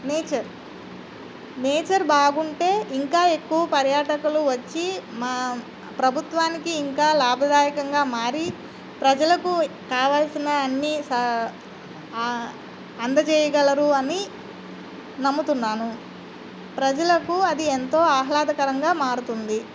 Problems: constant background noise